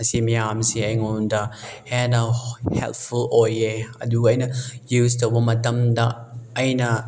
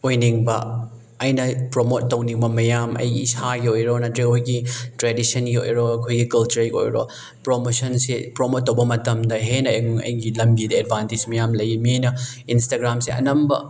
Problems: none marked